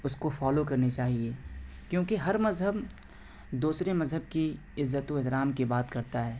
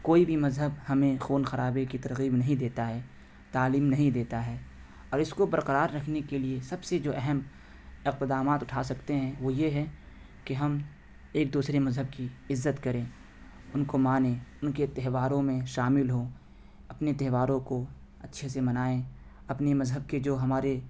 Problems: constant background noise